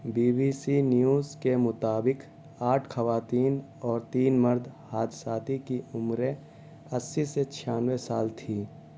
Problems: constant background noise